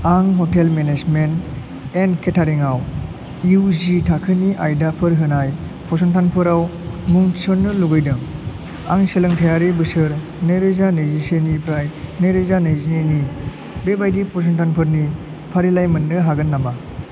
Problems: none marked